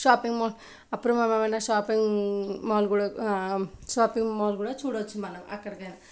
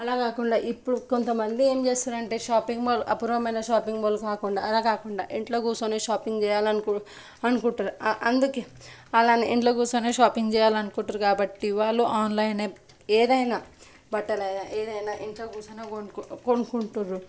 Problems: none marked